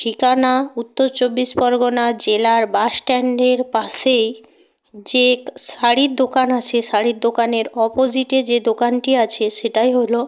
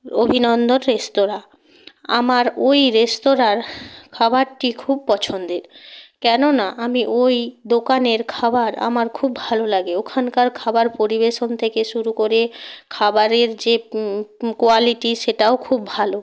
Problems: background conversations at intervals